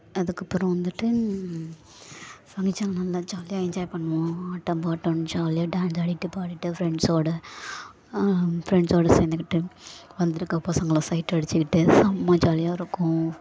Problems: background sounds at intervals